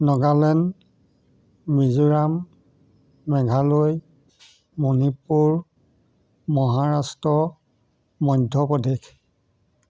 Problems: none marked